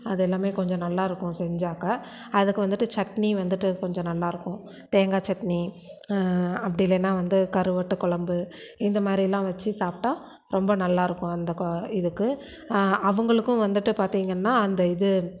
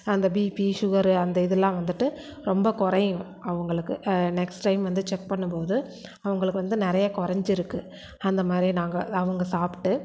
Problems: none marked